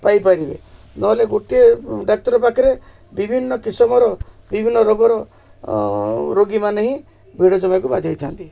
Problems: none marked